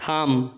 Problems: background sounds at intervals